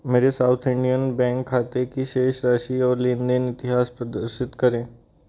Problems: none marked